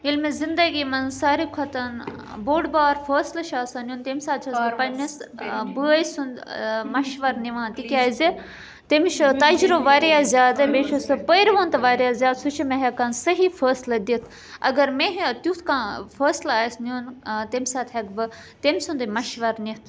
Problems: background conversations at intervals